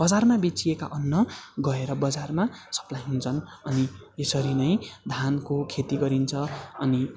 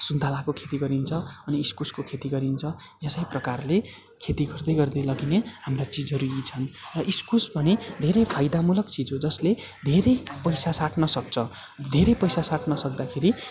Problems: none marked